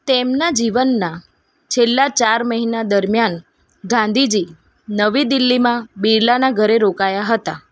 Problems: none marked